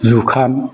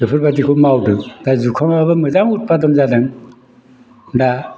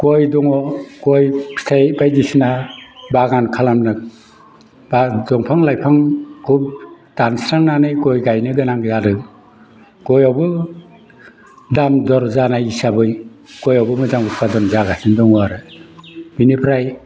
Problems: background sounds at intervals